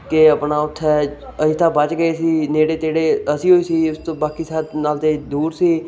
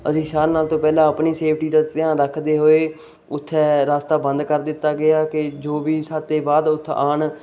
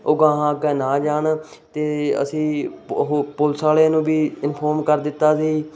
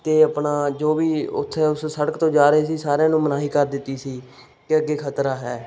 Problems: none marked